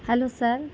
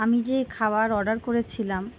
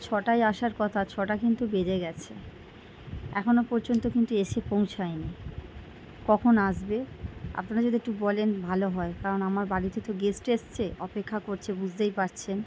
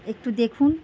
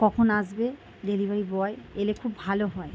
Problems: background sounds at intervals